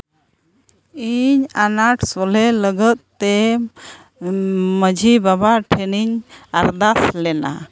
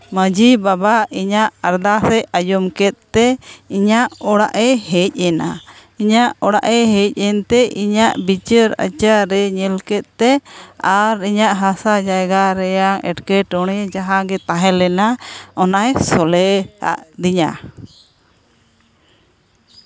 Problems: none marked